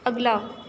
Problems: constant background noise